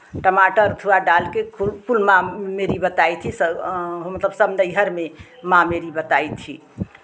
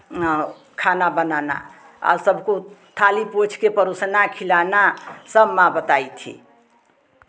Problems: constant background noise, continuous background conversations